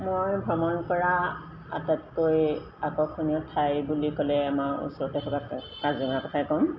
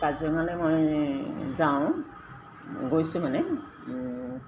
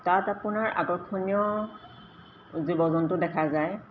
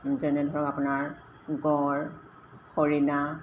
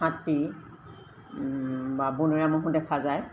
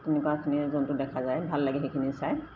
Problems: constant background noise, echo